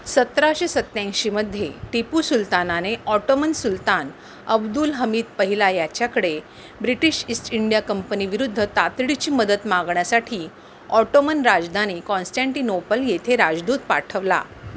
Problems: constant background noise